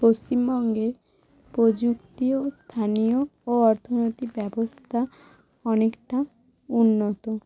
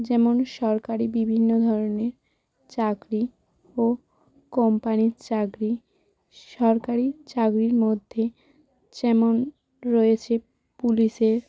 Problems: constant background noise, background conversations at intervals